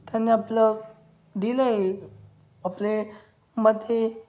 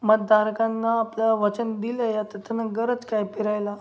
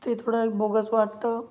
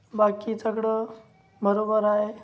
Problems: none marked